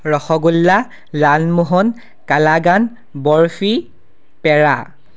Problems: constant background noise